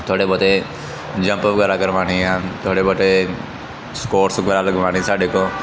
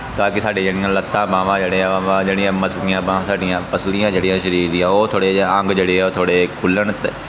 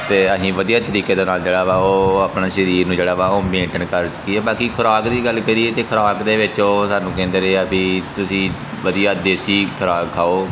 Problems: background sounds at intervals